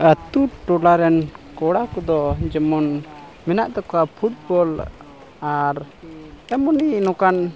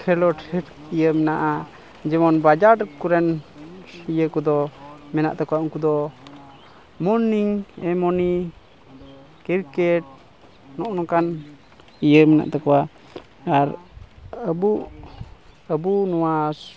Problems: constant background noise, continuous background conversations